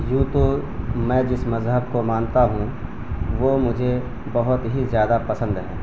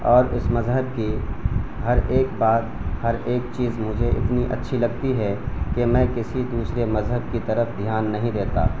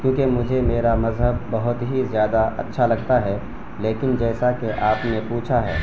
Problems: constant background noise